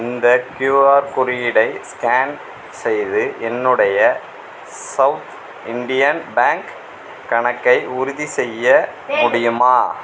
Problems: background sounds at intervals